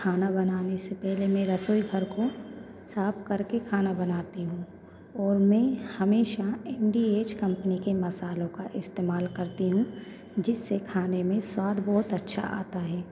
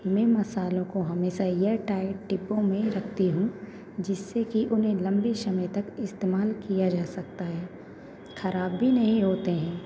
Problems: constant background noise, background conversations at intervals